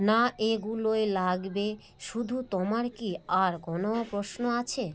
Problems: constant background noise